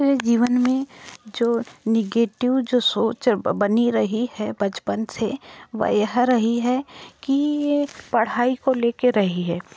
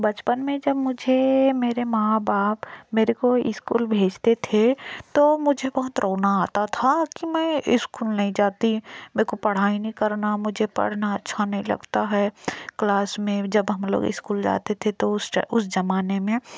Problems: background sounds at intervals